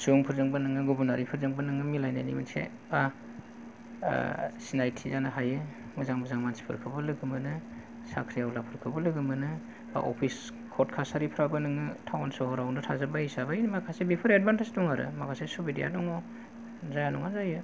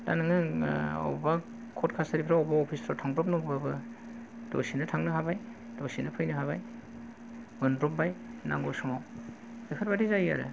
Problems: low volume